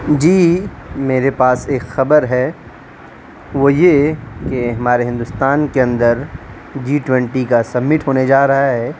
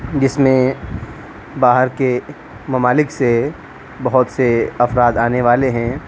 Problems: constant background noise